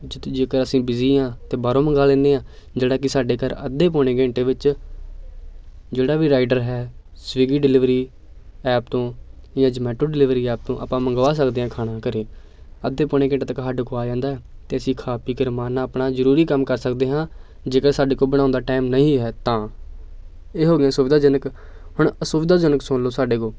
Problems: background sounds at intervals, continuous background conversations